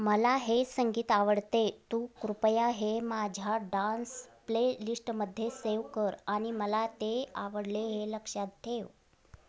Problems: constant background noise